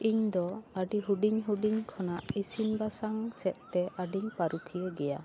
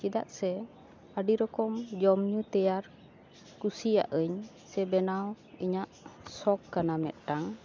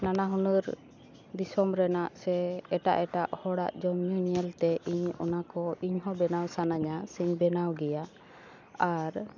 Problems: background sounds at intervals